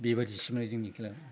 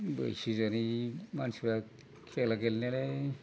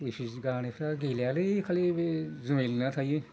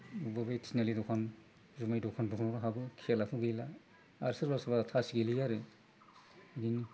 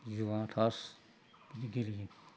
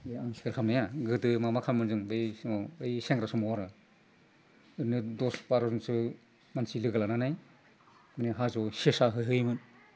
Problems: constant background noise